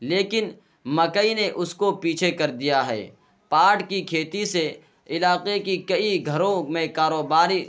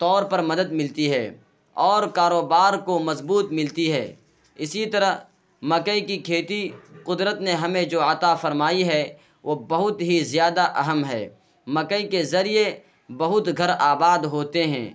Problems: constant background noise